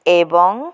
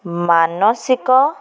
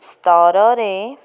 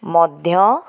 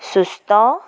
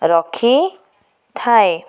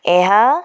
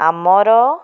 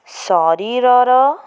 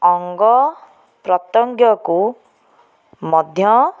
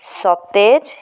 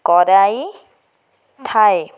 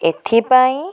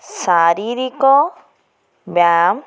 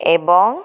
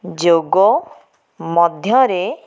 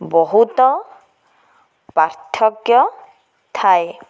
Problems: none marked